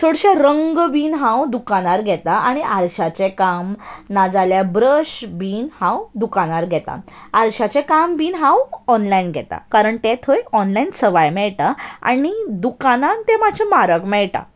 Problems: none marked